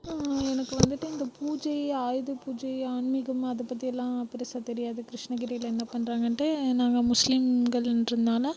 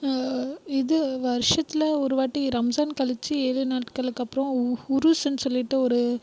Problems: background sounds at intervals, low volume